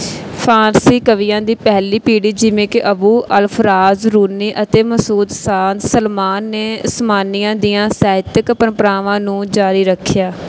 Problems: none marked